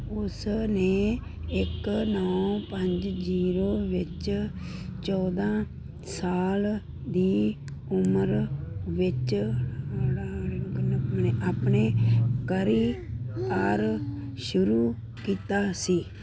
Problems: constant background noise